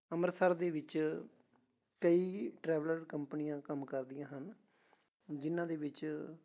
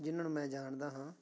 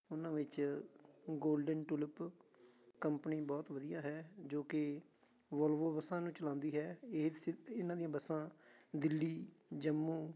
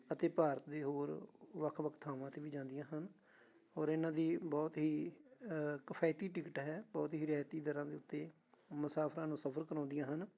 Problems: continuous background conversations